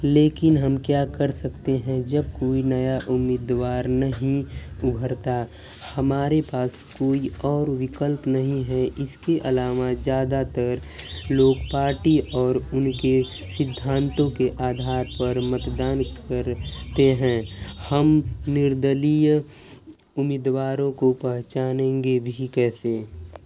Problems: none marked